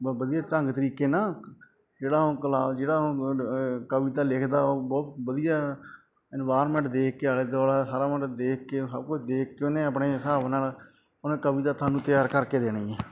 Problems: background sounds at intervals